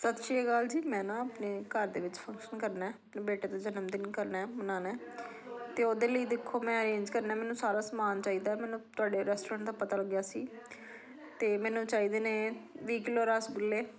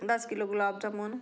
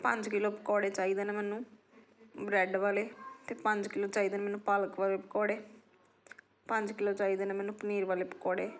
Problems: background conversations at intervals